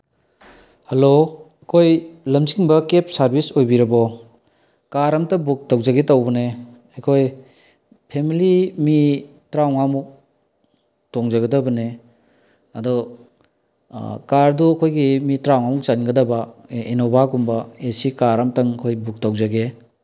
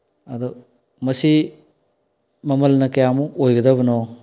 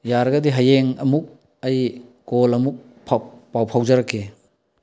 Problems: low volume